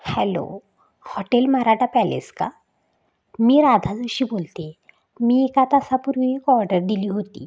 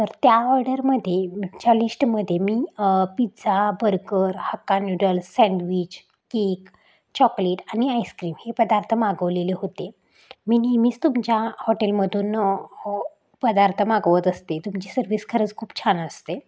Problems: background sounds at intervals